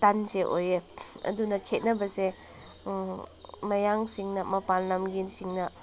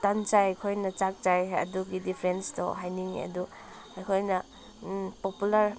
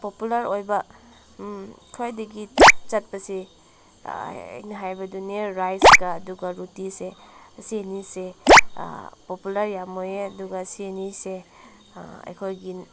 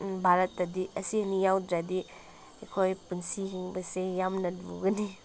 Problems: constant background noise